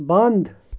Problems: constant background noise